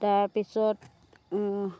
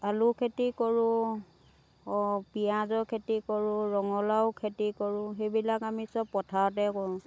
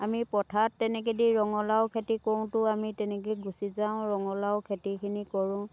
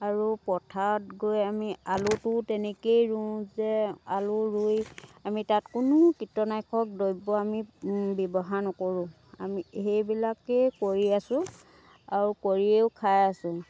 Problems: background sounds at intervals